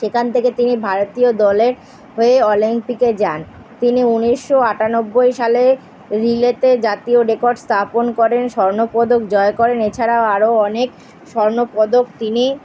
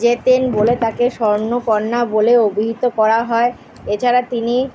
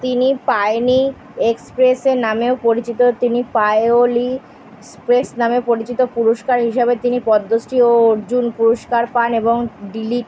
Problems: background sounds at intervals